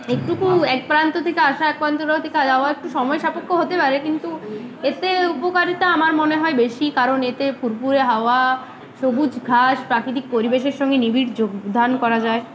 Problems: constant background noise, continuous background conversations